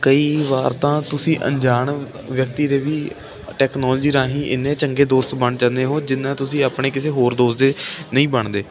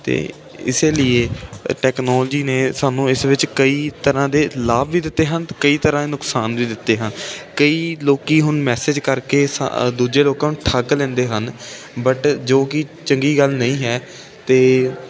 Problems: constant background noise